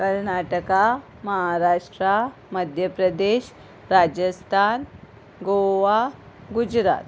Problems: none marked